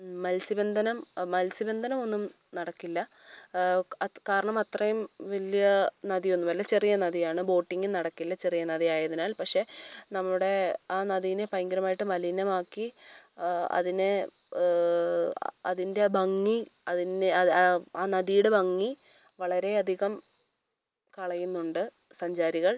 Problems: none marked